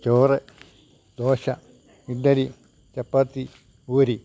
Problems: low volume